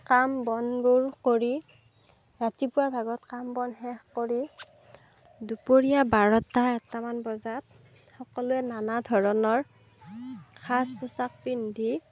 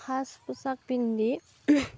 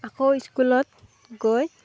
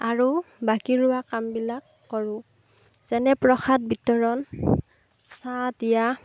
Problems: background sounds at intervals, background conversations at intervals